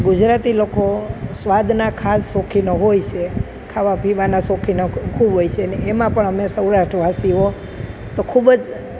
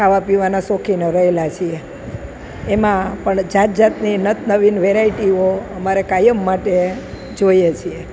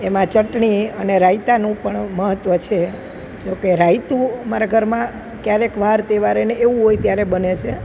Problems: none marked